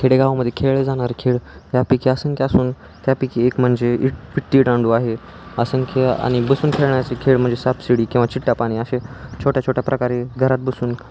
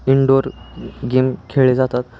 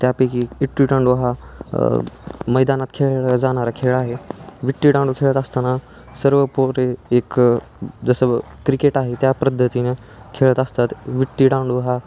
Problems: none marked